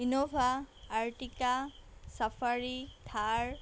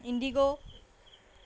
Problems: background sounds at intervals